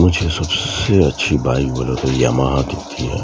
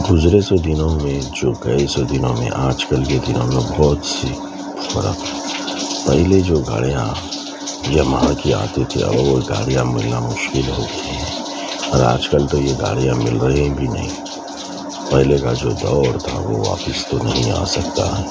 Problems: constant background noise, low volume